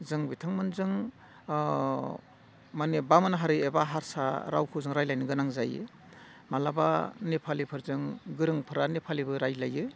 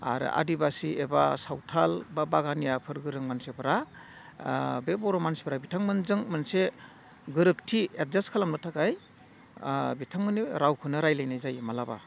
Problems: none marked